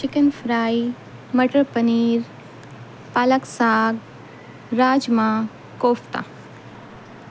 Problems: constant background noise